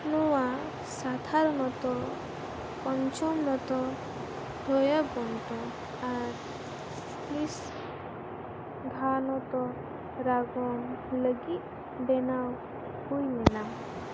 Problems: constant background noise